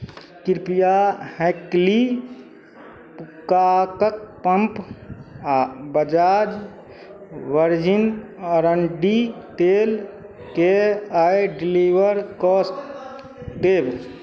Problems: none marked